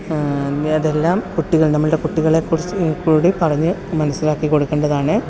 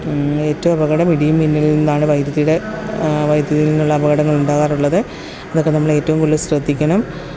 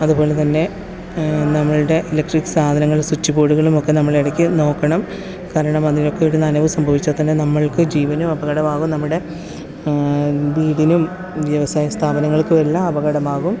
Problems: constant background noise